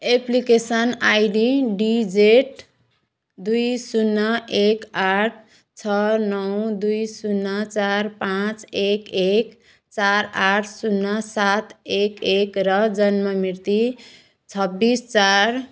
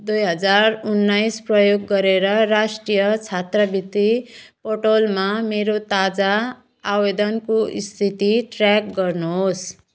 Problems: background sounds at intervals